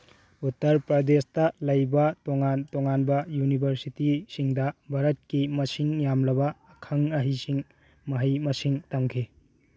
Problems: none marked